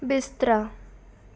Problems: background conversations at intervals